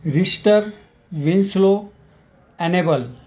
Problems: none marked